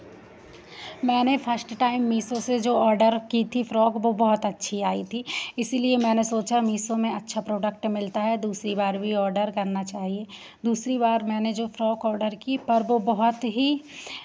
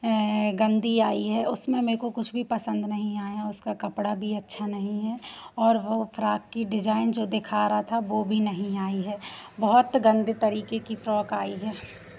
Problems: constant background noise